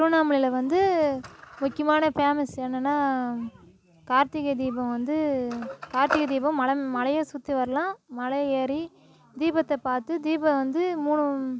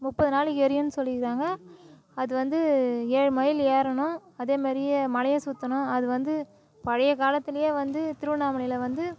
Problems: continuous background conversations